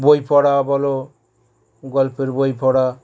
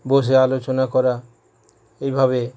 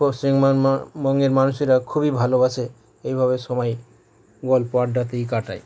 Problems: background sounds at intervals